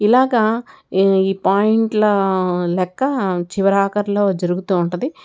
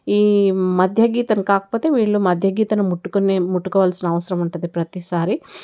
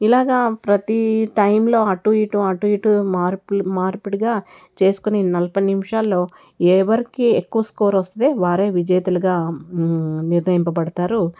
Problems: none marked